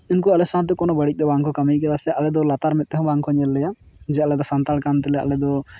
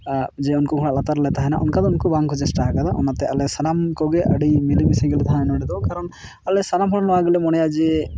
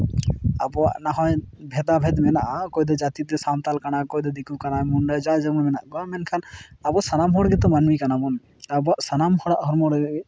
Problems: background sounds at intervals